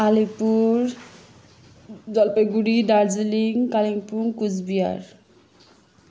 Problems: background sounds at intervals